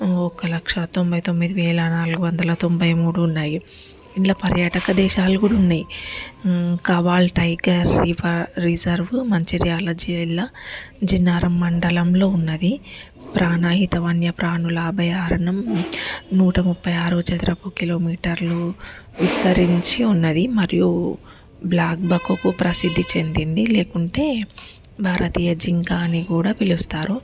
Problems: background sounds at intervals, background conversations at intervals